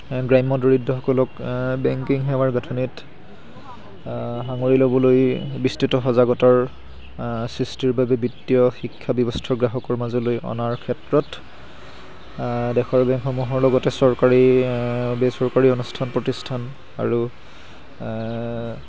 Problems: constant background noise